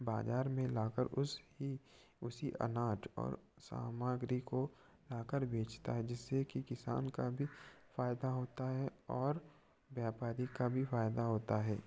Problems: none marked